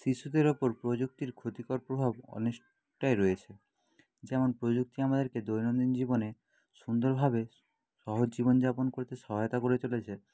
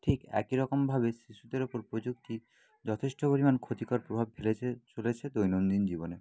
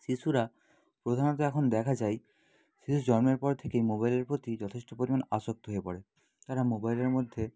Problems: background sounds at intervals